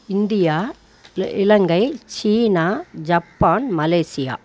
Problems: none marked